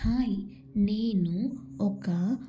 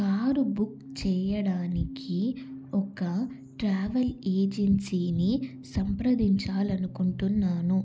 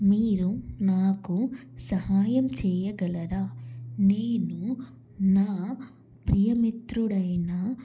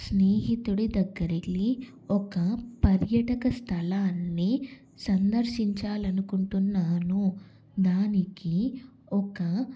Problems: constant background noise